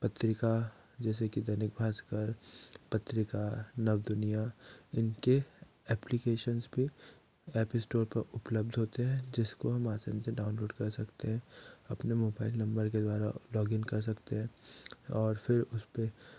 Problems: low volume